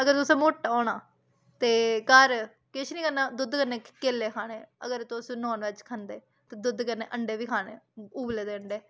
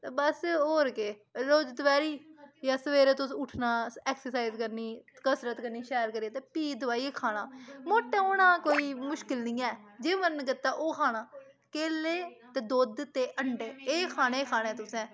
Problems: constant background noise